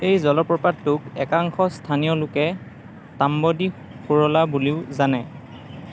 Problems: background sounds at intervals, background conversations at intervals